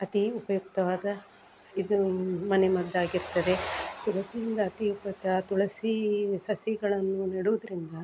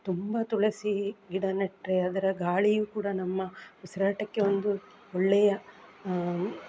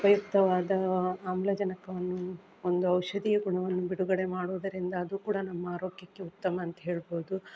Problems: background sounds at intervals